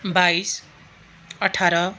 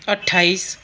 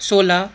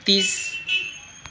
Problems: constant background noise